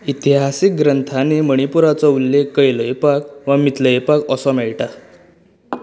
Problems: none marked